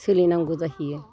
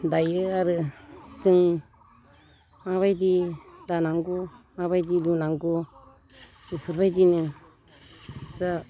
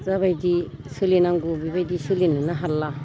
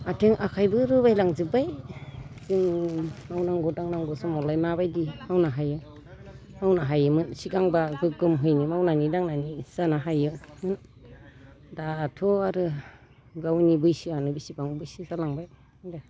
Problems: background conversations at intervals, low volume